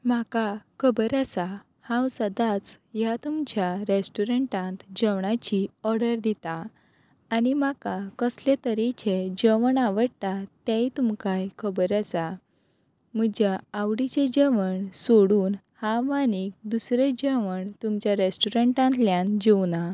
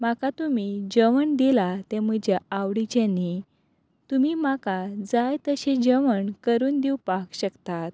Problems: none marked